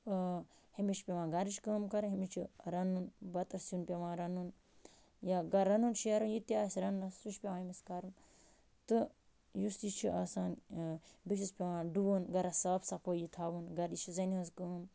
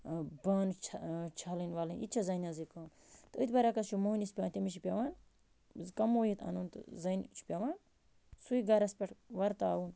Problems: constant background noise